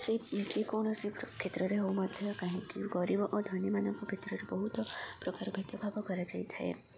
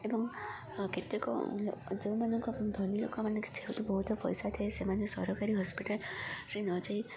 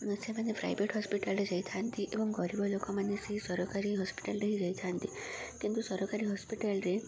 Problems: constant background noise, continuous background conversations